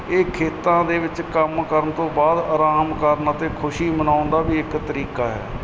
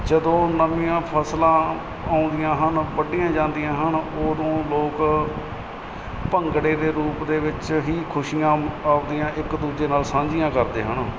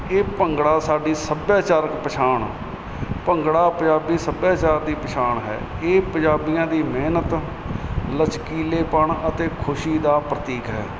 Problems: none marked